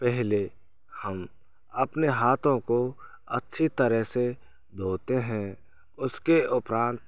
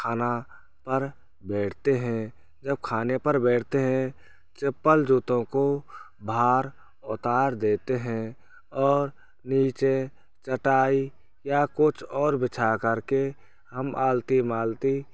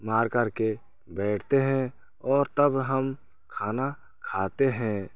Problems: constant background noise